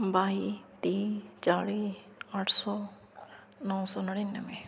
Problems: none marked